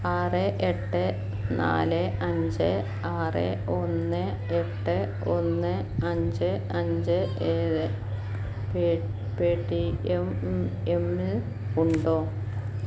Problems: constant background noise